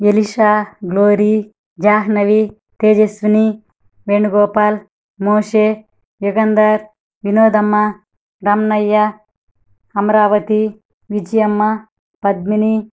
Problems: none marked